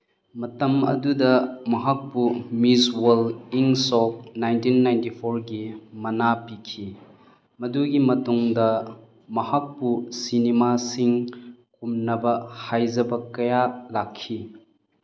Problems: none marked